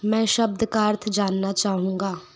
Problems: none marked